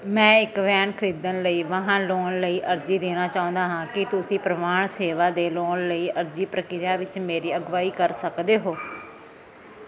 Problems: background sounds at intervals